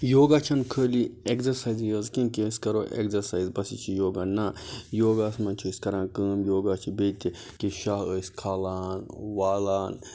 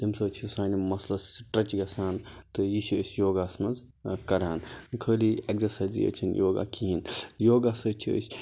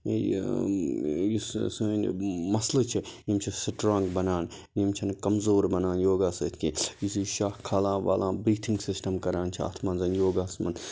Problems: none marked